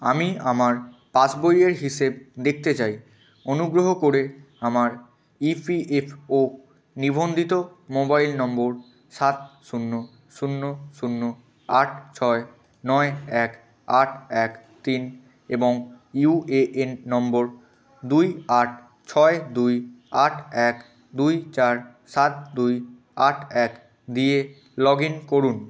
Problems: constant background noise, continuous background conversations